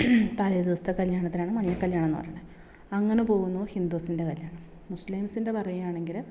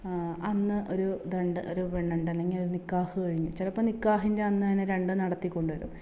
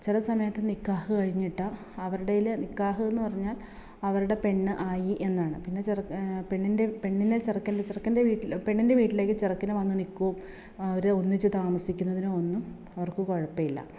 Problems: none marked